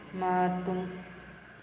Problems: background sounds at intervals